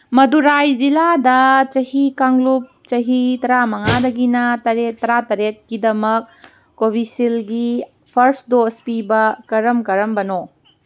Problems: background sounds at intervals